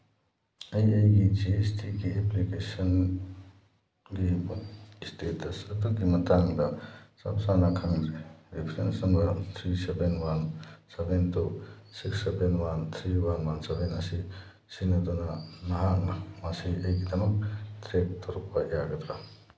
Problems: constant background noise